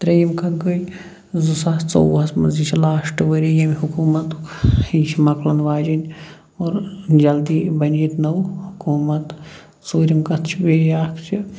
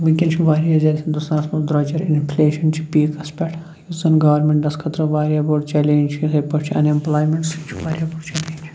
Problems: none marked